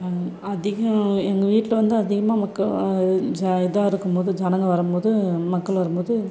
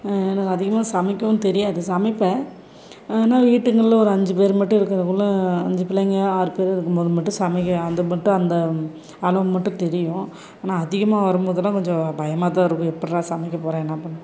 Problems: continuous background conversations